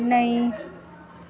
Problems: constant background noise